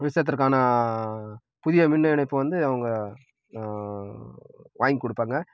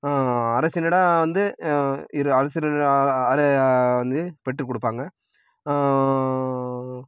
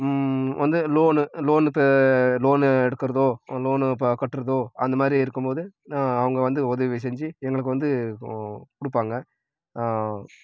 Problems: none marked